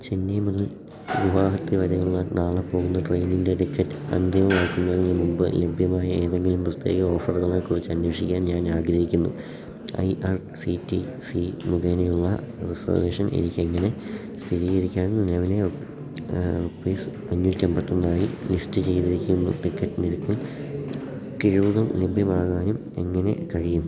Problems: background sounds at intervals, low volume